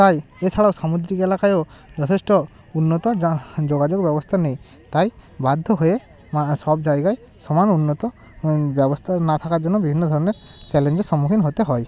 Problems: constant background noise, continuous background conversations